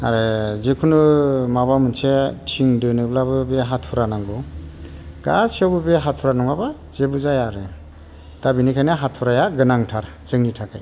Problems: constant background noise